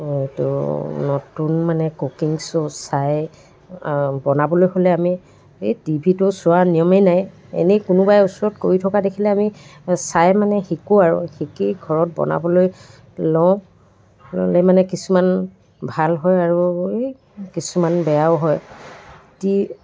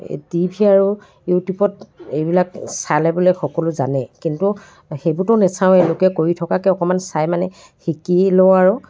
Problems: constant background noise, background conversations at intervals